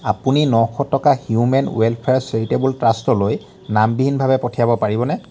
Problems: background sounds at intervals